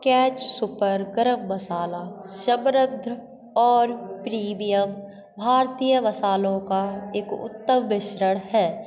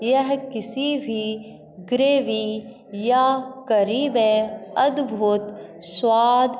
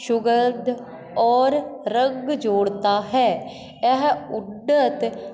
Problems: constant background noise, echo